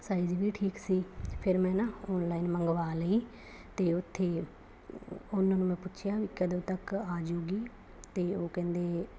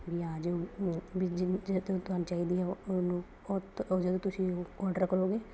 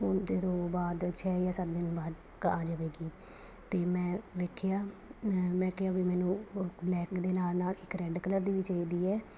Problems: none marked